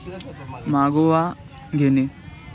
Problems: constant background noise, continuous background conversations